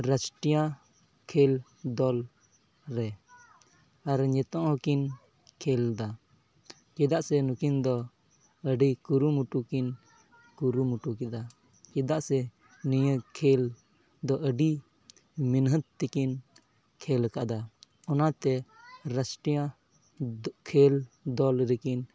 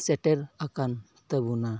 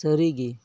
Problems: background conversations at intervals